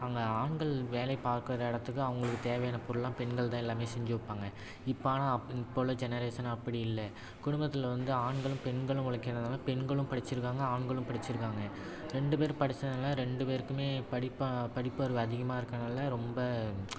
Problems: constant background noise